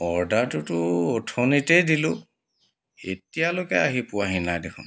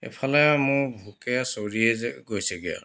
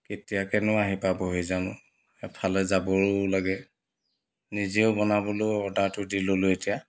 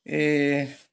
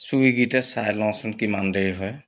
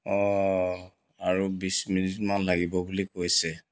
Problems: background sounds at intervals